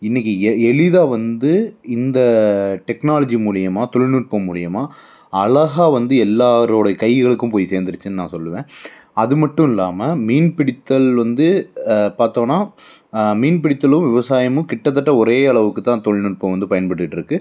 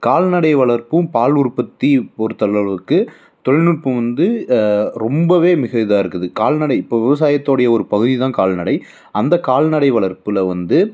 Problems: background sounds at intervals